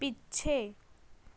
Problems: background sounds at intervals